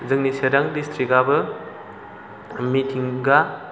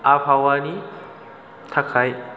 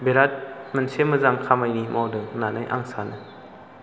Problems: none marked